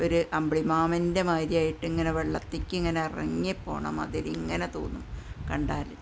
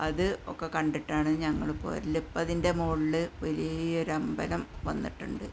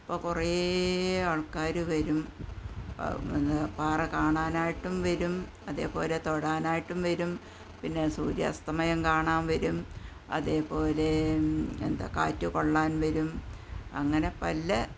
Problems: background sounds at intervals, low volume